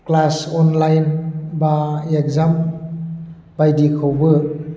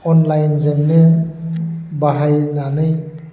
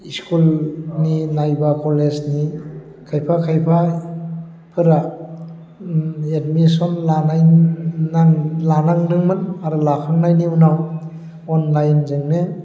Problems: low volume